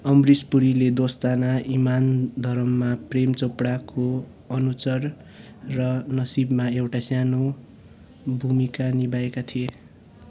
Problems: none marked